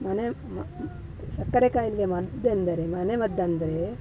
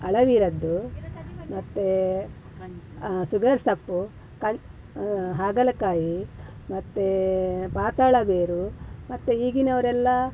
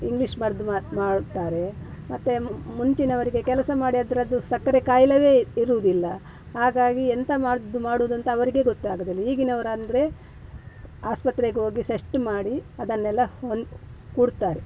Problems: background sounds at intervals